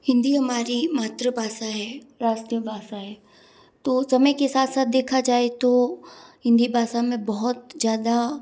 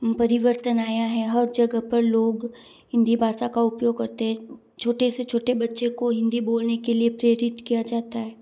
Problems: none marked